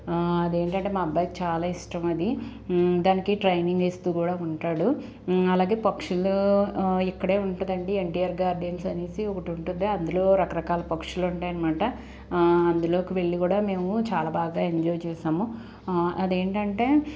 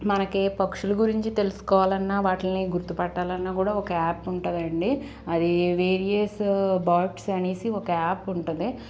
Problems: constant background noise